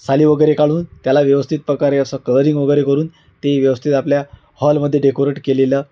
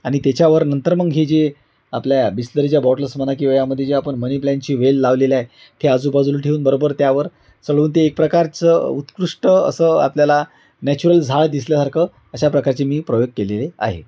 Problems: constant background noise